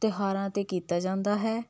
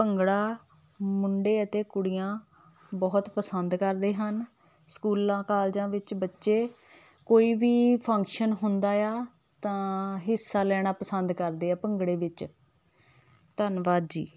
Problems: none marked